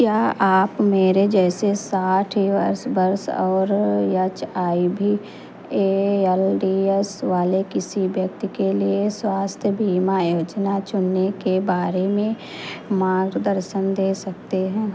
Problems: constant background noise